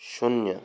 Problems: none marked